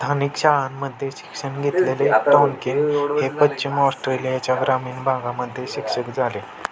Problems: constant background noise, continuous background conversations